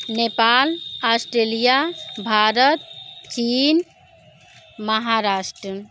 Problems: background sounds at intervals